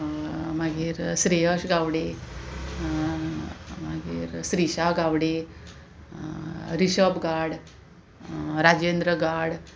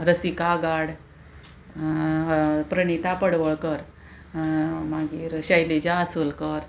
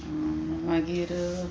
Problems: constant background noise, continuous background conversations